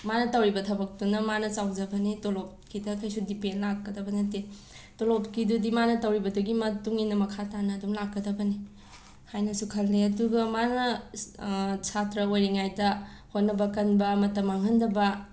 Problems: background sounds at intervals